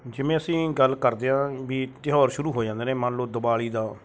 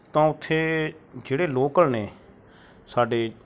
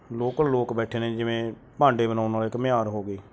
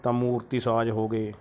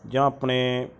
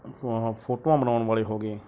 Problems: background sounds at intervals